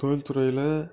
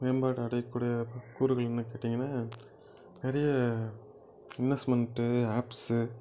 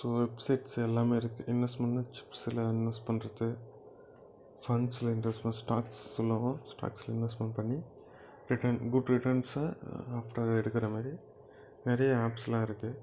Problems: background sounds at intervals